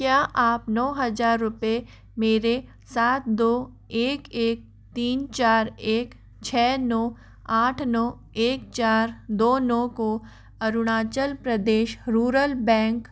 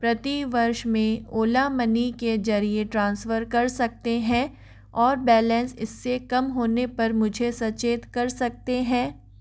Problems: none marked